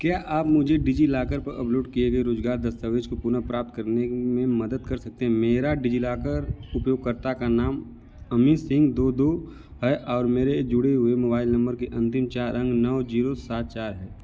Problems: none marked